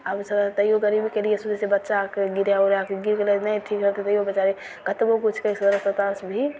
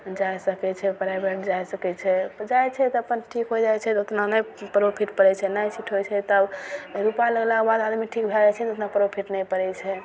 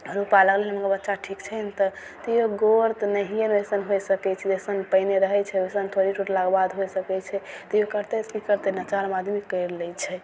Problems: none marked